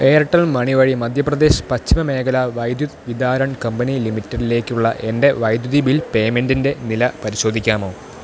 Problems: constant background noise